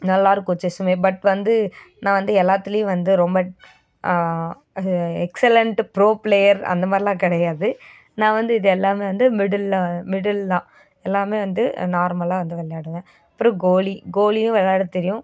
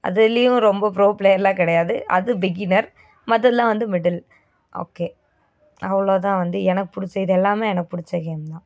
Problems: none marked